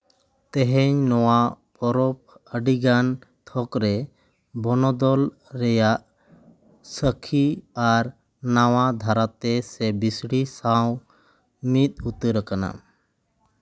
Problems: background sounds at intervals